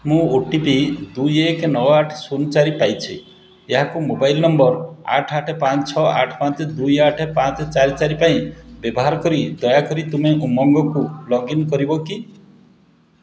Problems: constant background noise